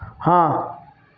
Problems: background sounds at intervals